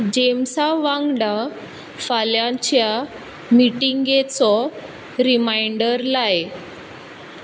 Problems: constant background noise